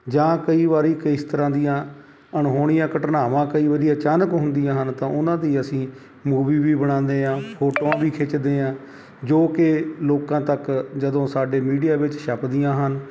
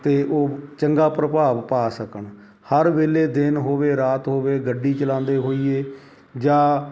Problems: background sounds at intervals